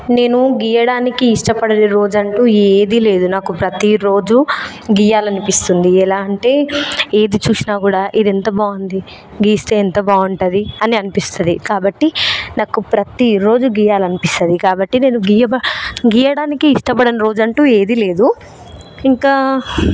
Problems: constant background noise